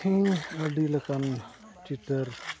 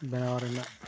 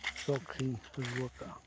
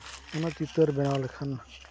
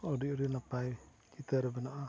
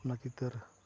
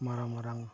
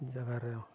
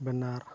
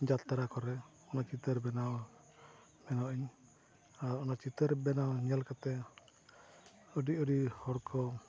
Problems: constant background noise, low volume